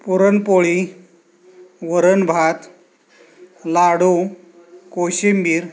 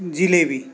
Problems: constant background noise